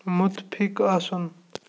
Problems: none marked